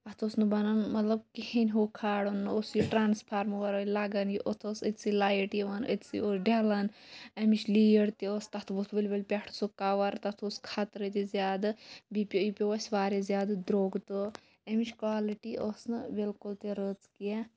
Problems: background sounds at intervals, background conversations at intervals